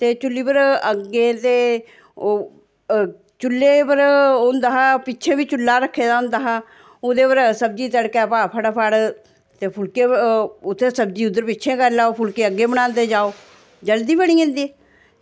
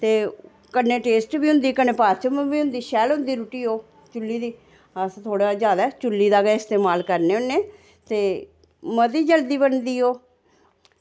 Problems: none marked